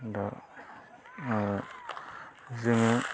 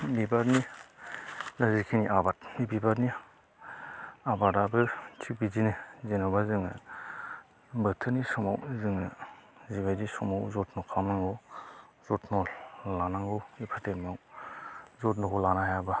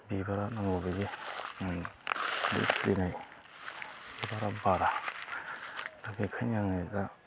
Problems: constant background noise